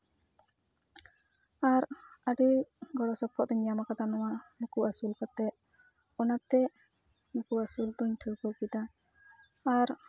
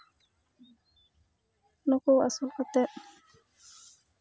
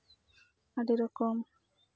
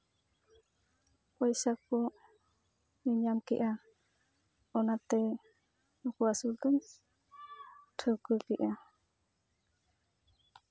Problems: background sounds at intervals, background conversations at intervals